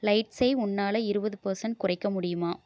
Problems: none marked